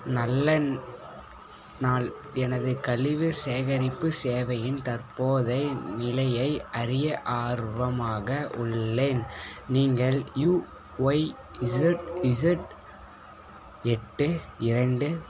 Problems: background sounds at intervals, background conversations at intervals